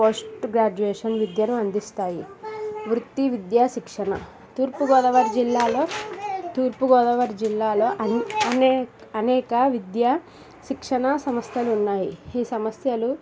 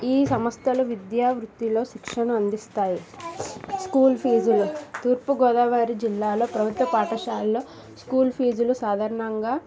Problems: background sounds at intervals, background conversations at intervals